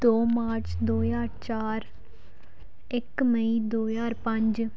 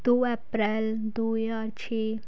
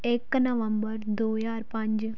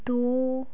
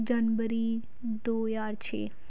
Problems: background sounds at intervals